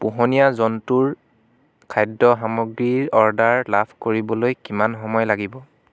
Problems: none marked